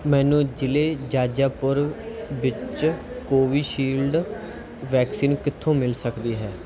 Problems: background sounds at intervals